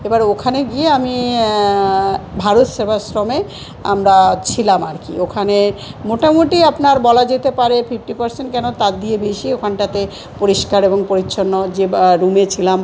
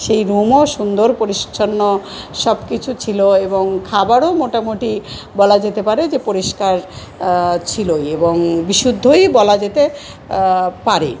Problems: none marked